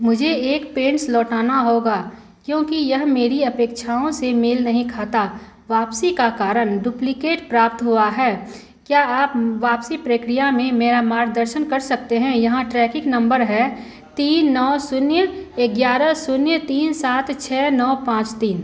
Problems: constant background noise